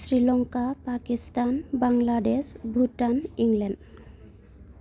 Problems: constant background noise